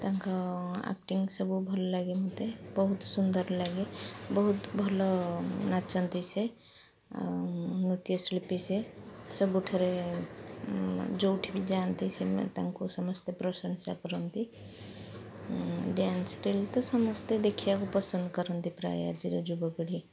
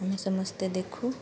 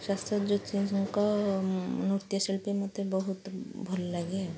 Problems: constant background noise